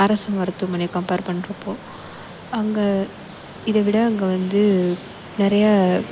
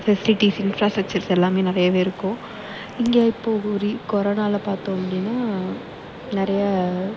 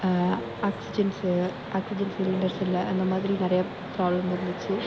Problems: background sounds at intervals